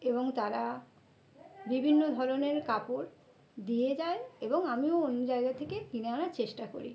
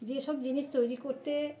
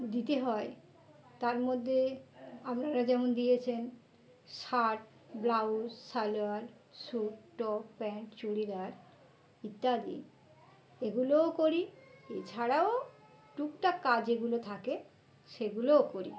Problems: continuous background conversations